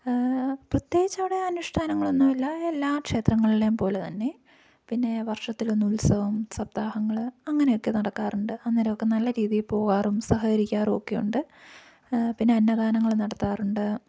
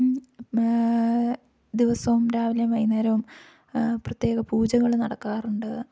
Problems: low volume